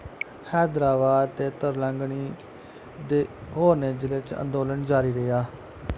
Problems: constant background noise